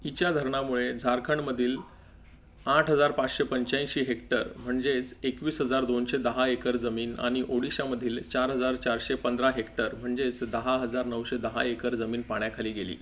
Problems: none marked